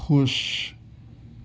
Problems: constant background noise